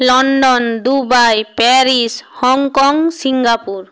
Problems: none marked